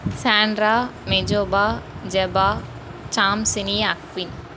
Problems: constant background noise